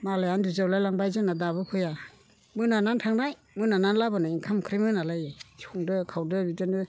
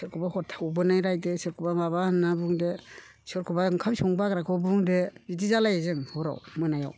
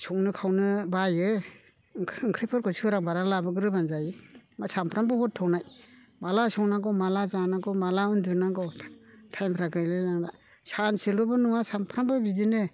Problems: none marked